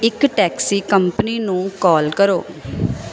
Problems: constant background noise